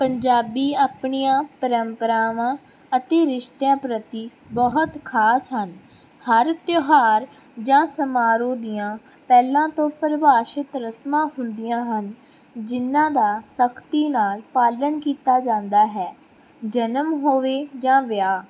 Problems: background sounds at intervals